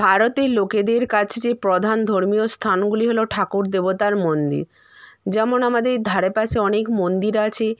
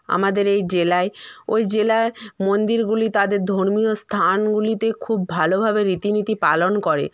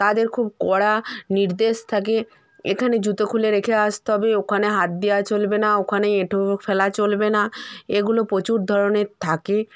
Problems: background sounds at intervals